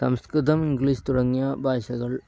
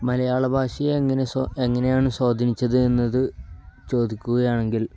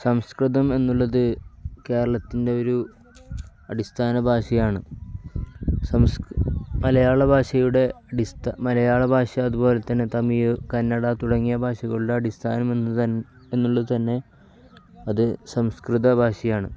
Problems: none marked